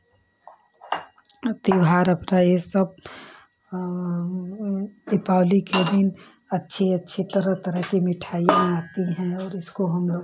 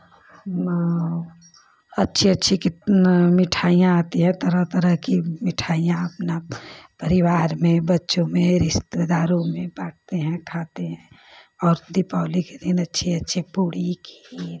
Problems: none marked